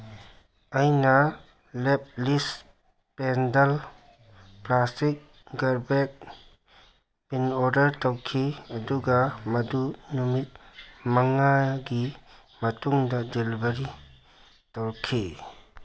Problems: background sounds at intervals